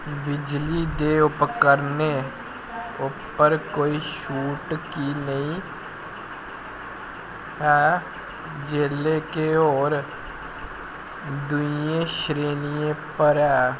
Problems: constant background noise